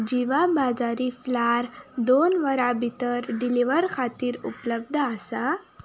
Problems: none marked